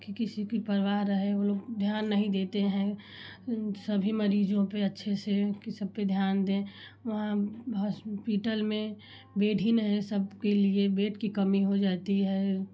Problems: constant background noise